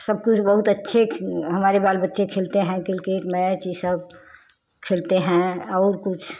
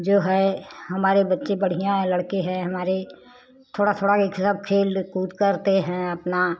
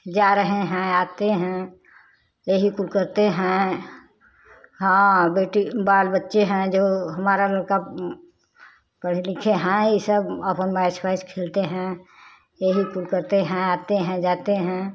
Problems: constant background noise